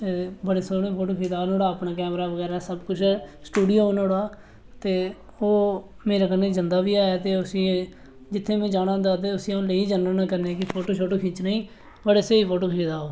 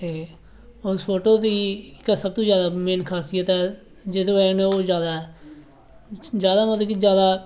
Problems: none marked